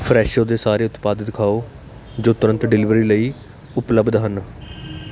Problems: constant background noise